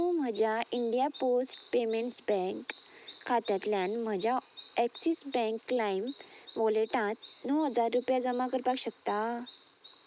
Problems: constant background noise